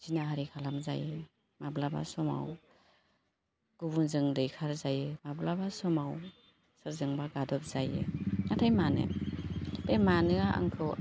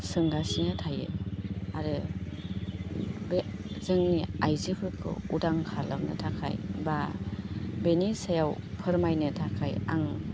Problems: constant background noise